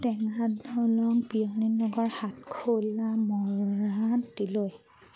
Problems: none marked